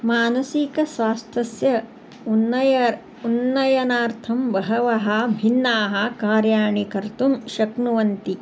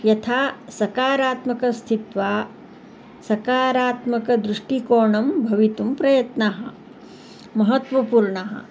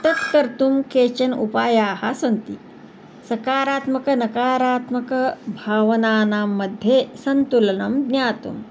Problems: background sounds at intervals